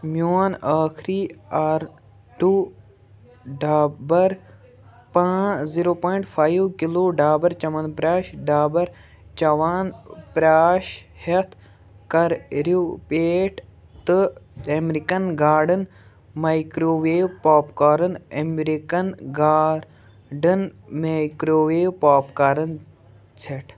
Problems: background sounds at intervals